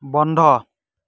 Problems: none marked